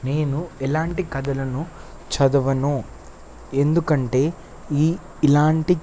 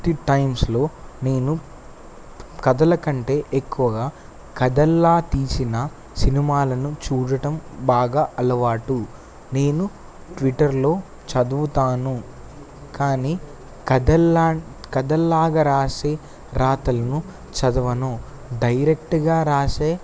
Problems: constant background noise